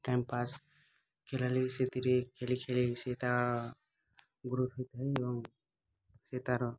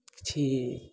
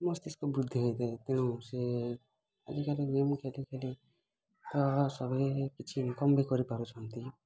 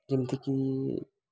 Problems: constant background noise, continuous background conversations